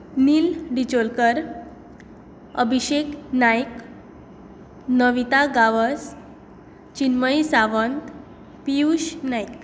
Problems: constant background noise